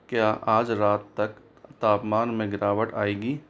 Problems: none marked